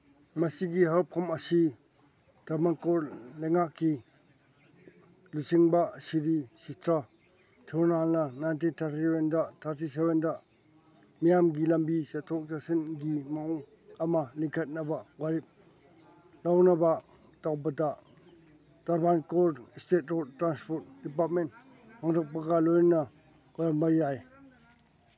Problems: background sounds at intervals